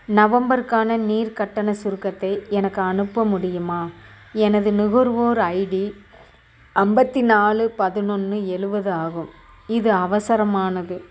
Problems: none marked